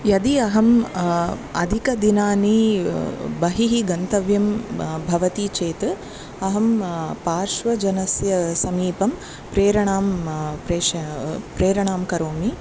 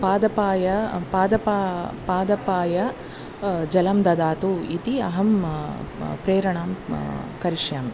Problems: constant background noise, continuous background conversations